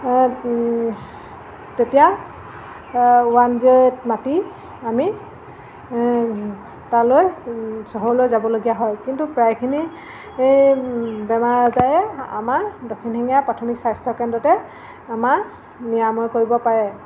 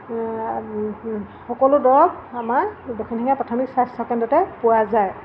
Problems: constant background noise